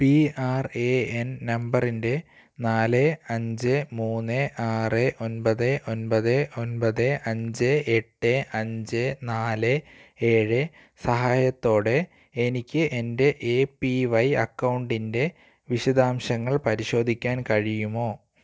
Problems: none marked